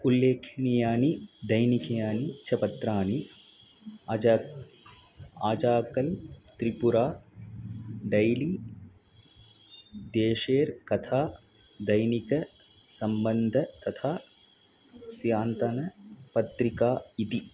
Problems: background sounds at intervals